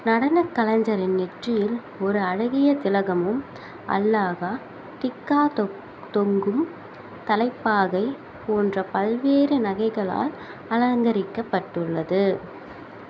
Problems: constant background noise